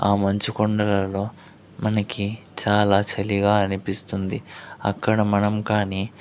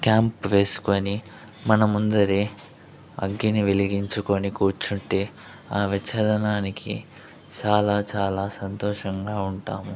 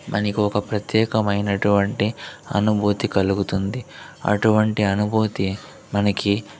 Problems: background conversations at intervals